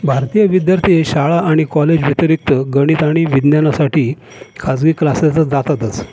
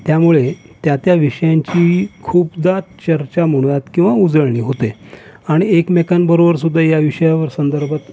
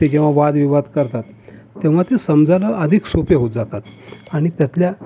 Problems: none marked